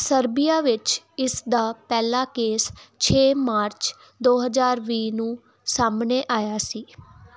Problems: background sounds at intervals